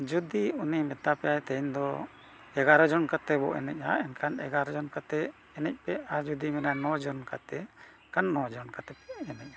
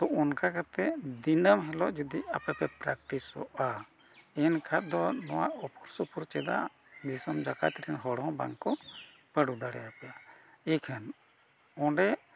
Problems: none marked